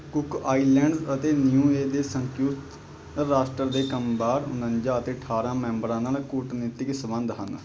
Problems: none marked